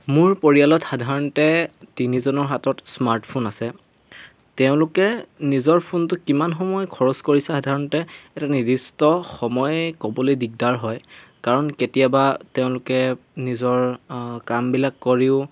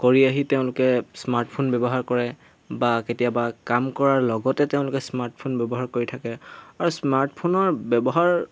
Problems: none marked